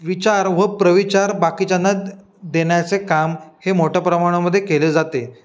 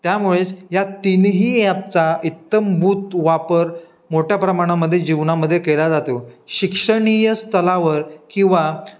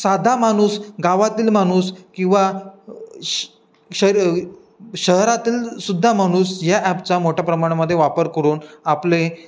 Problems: background sounds at intervals